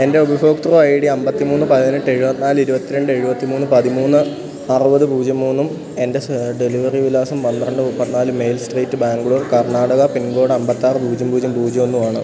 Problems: constant background noise